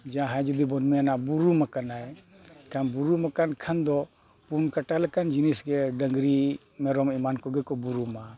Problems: none marked